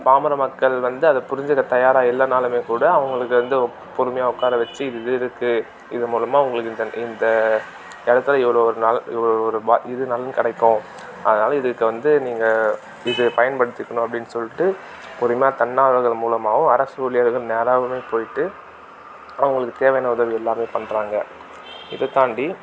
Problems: background sounds at intervals, background conversations at intervals